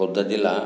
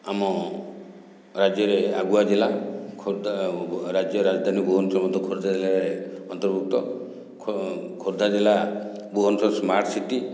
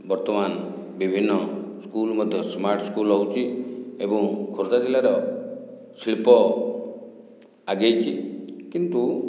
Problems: none marked